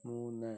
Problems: low volume